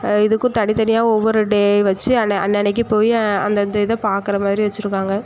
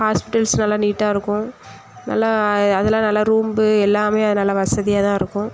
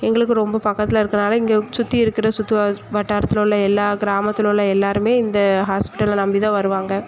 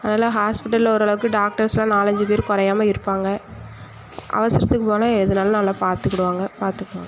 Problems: none marked